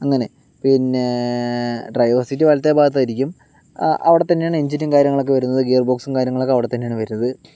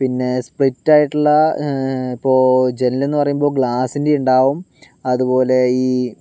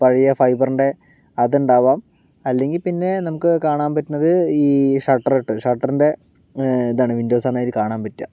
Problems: none marked